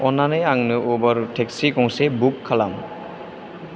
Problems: none marked